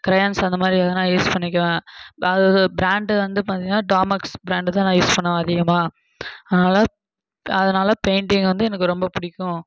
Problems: background sounds at intervals